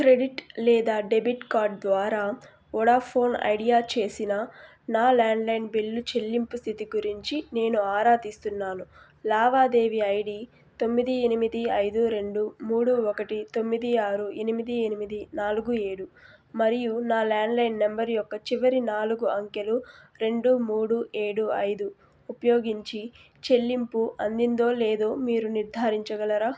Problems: constant background noise